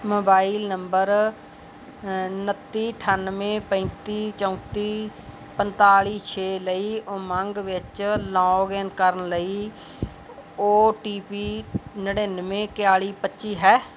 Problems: none marked